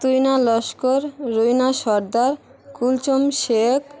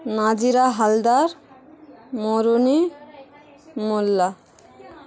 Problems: constant background noise, background conversations at intervals